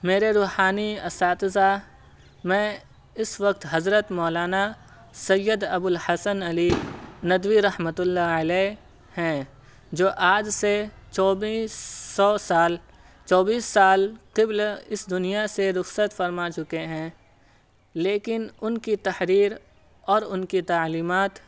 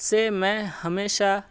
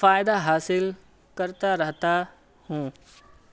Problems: none marked